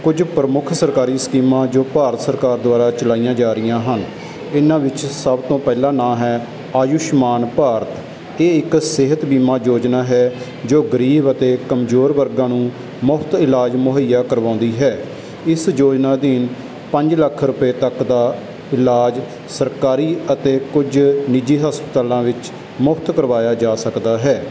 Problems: constant background noise